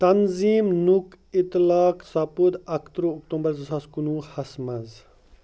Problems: none marked